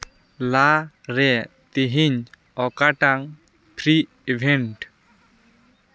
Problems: background conversations at intervals